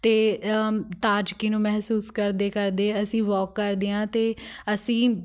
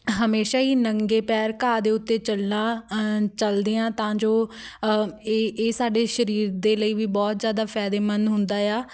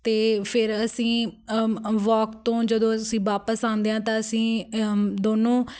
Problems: none marked